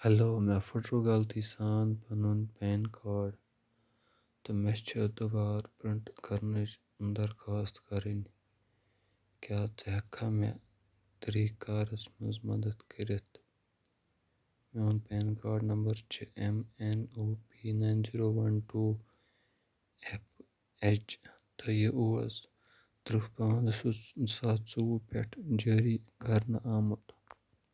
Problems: none marked